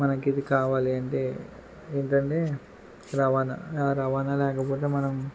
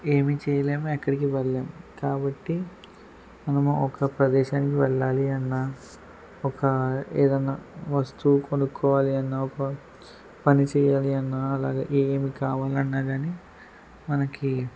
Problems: background sounds at intervals